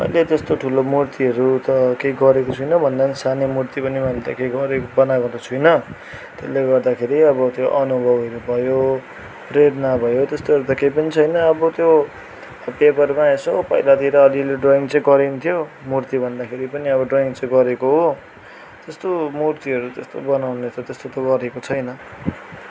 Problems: background sounds at intervals